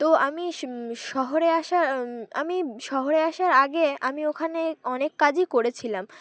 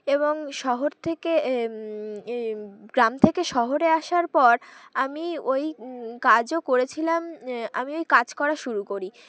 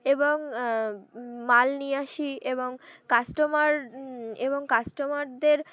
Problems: constant background noise, continuous background conversations